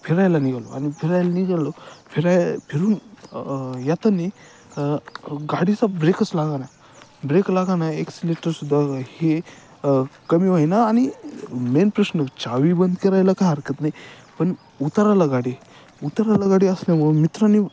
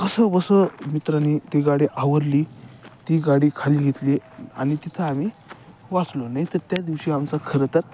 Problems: none marked